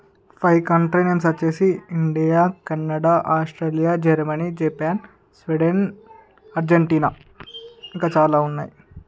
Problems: background sounds at intervals